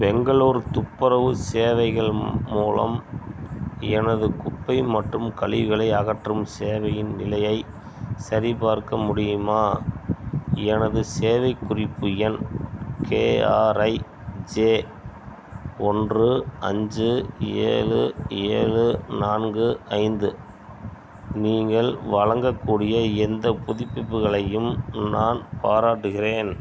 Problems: none marked